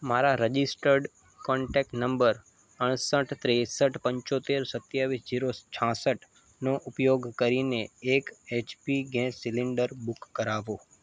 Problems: constant background noise